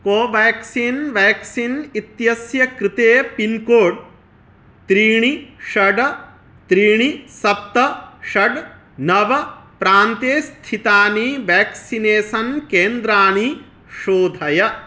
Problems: none marked